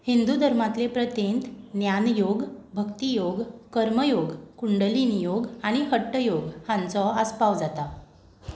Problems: background sounds at intervals